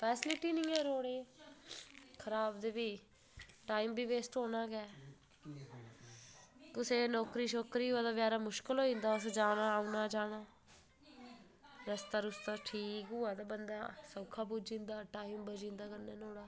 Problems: none marked